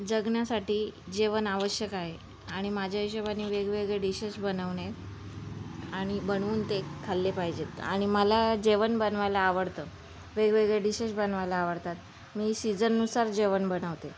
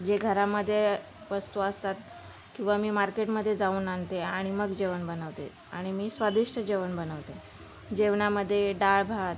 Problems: none marked